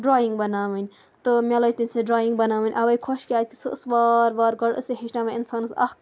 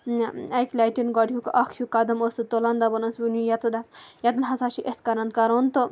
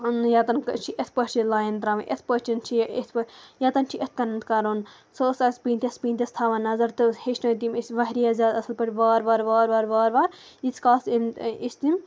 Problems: none marked